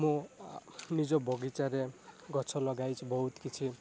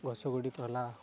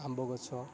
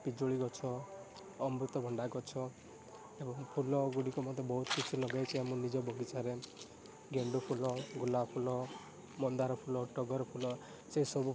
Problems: constant background noise